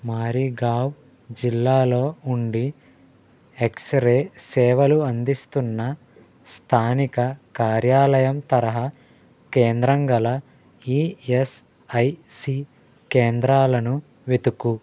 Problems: none marked